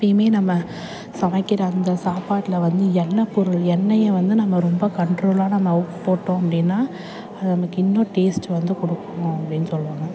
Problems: constant background noise